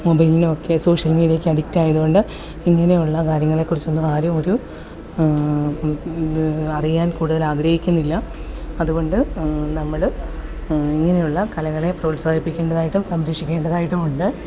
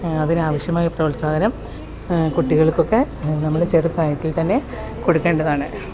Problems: background sounds at intervals